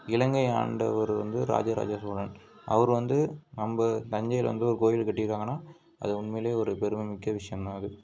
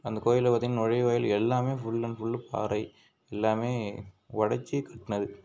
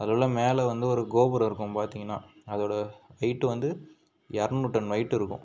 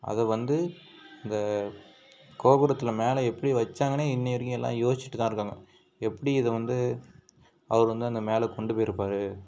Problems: background sounds at intervals